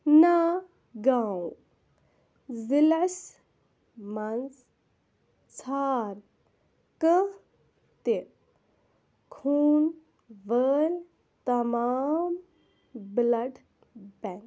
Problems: constant background noise